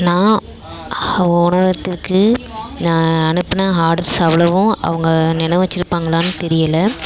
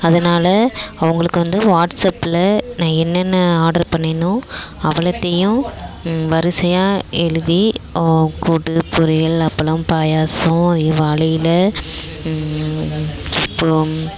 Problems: constant background noise